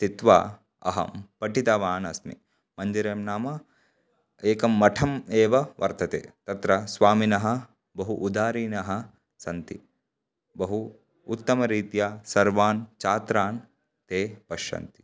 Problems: background sounds at intervals